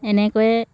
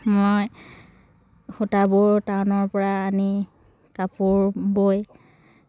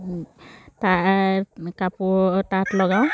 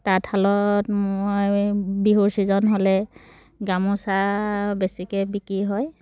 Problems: none marked